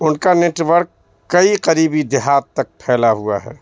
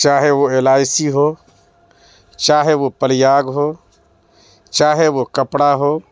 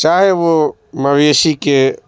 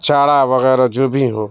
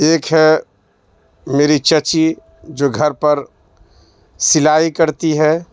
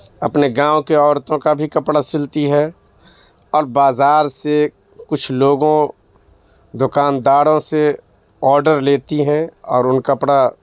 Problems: background sounds at intervals